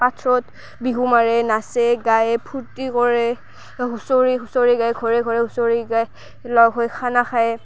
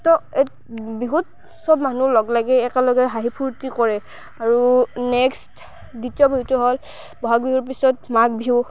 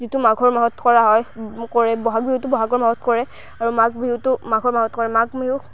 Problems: constant background noise